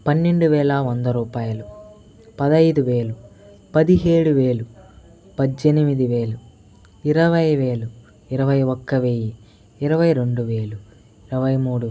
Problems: background conversations at intervals